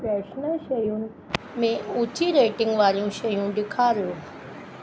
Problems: constant background noise, echo